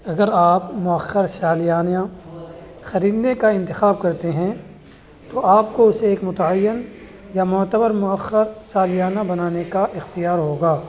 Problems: constant background noise